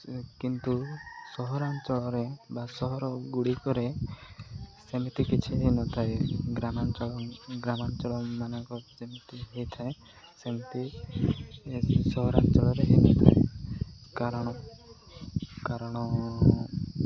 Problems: echo